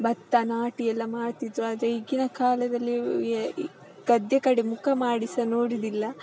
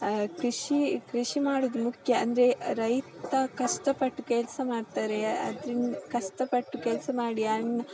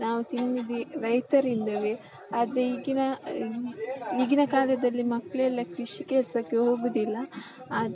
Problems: none marked